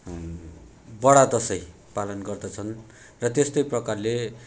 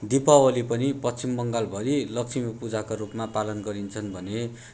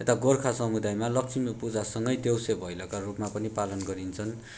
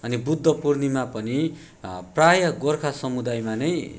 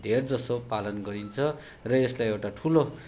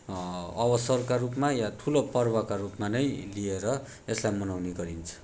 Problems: background sounds at intervals